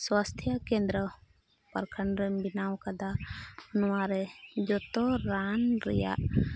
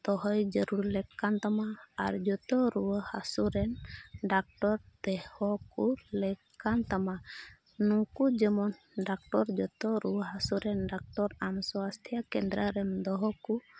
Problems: background sounds at intervals, background conversations at intervals